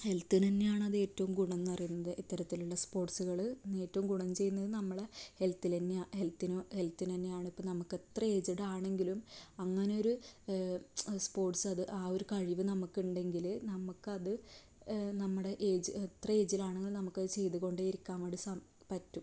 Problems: low volume